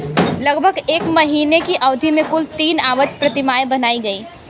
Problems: constant background noise